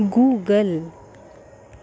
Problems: constant background noise